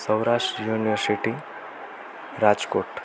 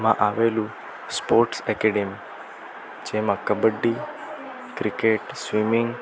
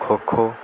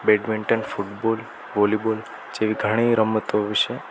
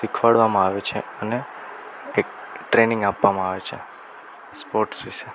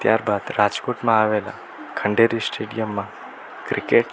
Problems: none marked